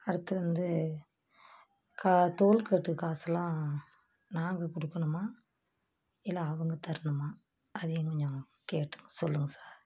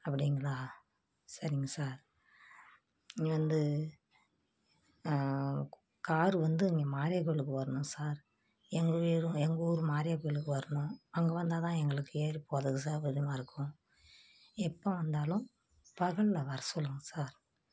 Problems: constant background noise